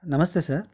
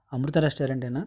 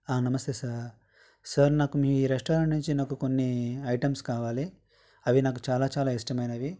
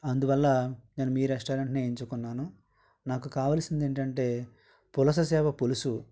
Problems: background sounds at intervals